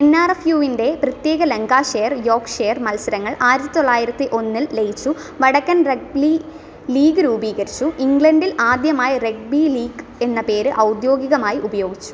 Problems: none marked